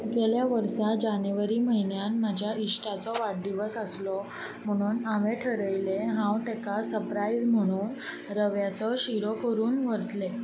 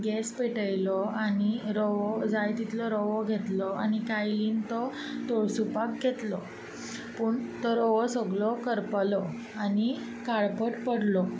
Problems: none marked